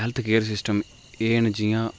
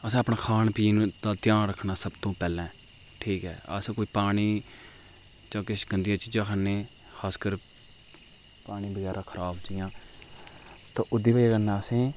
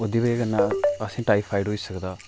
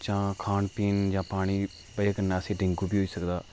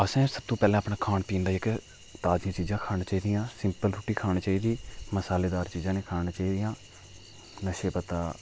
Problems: background sounds at intervals